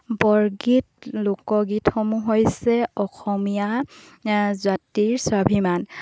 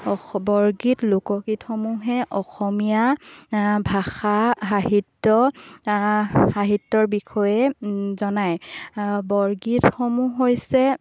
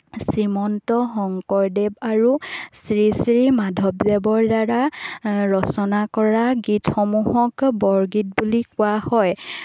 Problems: background sounds at intervals